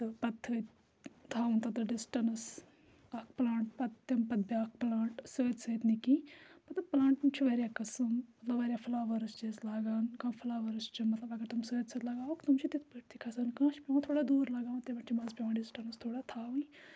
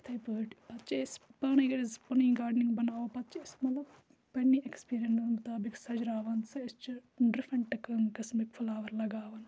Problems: constant background noise